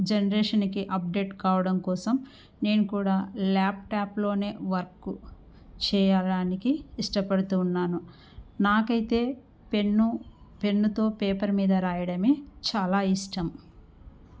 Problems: none marked